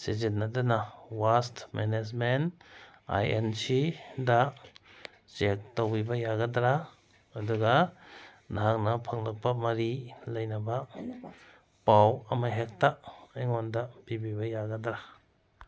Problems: background sounds at intervals